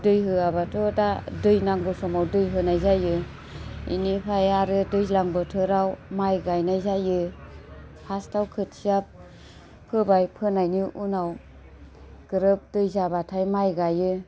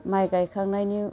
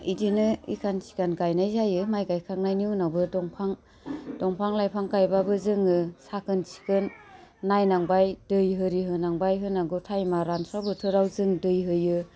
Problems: low volume